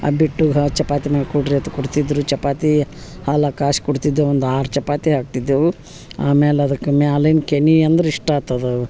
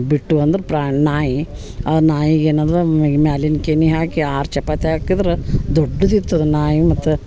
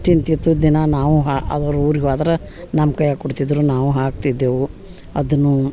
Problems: background sounds at intervals